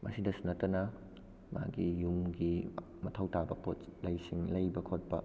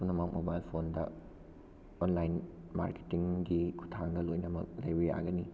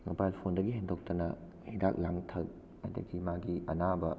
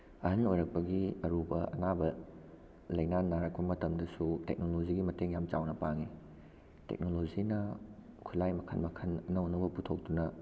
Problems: background sounds at intervals